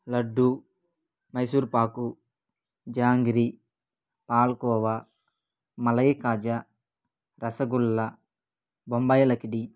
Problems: none marked